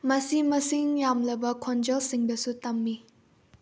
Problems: low volume